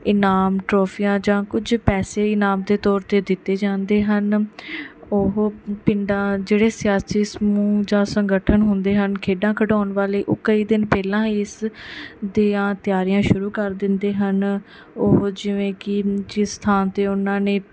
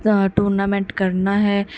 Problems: background sounds at intervals